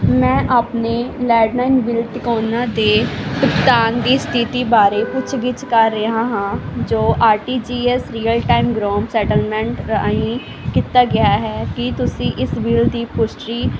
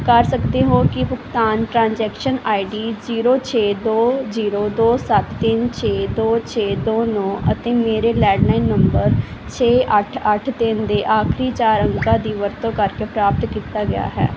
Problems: constant background noise